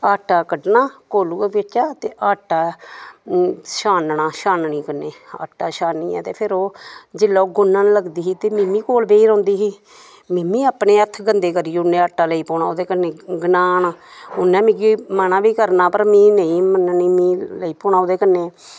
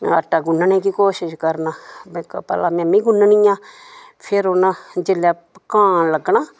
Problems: background sounds at intervals